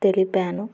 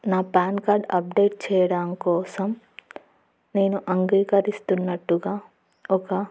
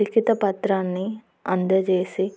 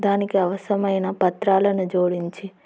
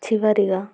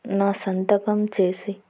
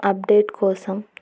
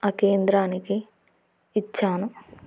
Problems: constant background noise